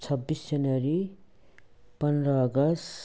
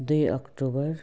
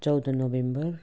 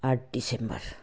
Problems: background sounds at intervals